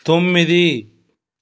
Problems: background sounds at intervals